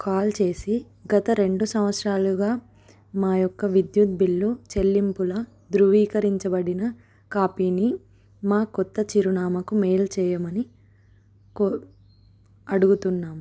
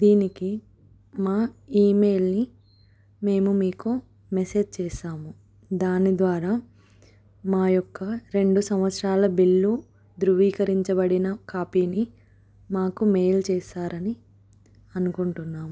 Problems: none marked